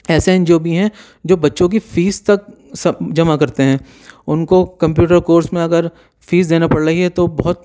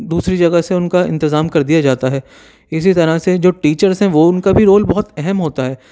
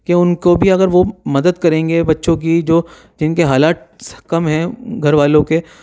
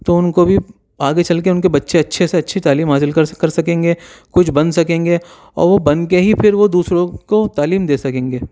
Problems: none marked